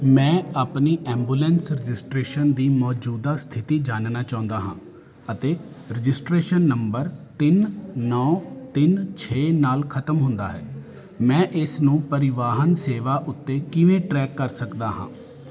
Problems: constant background noise